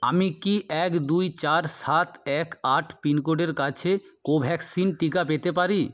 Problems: none marked